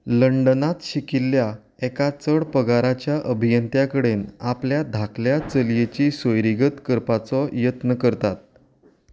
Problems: background sounds at intervals